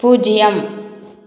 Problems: none marked